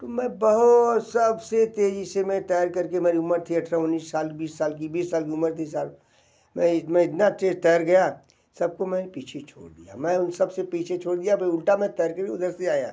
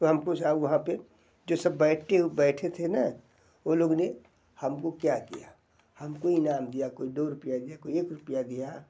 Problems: none marked